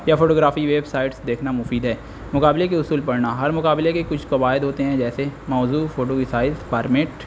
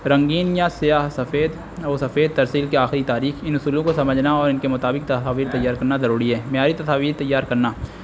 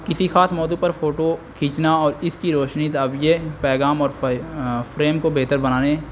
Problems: constant background noise